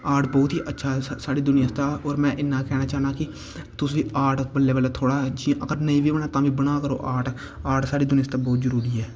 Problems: constant background noise